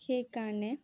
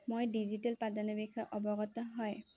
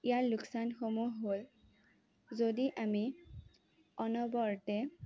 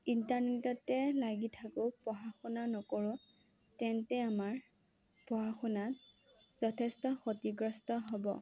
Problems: low volume